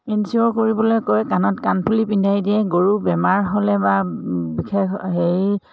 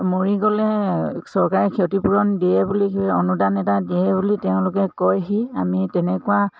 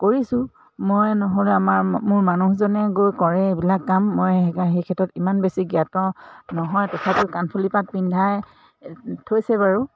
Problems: background sounds at intervals